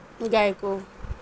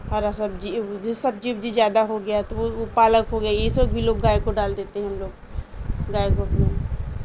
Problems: constant background noise